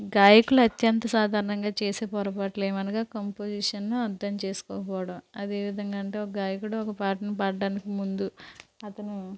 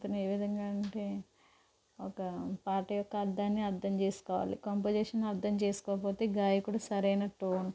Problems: constant background noise